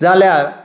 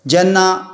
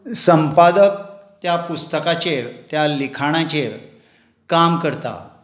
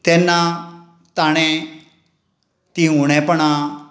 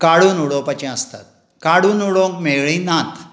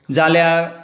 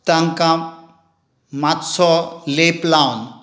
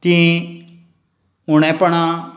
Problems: none marked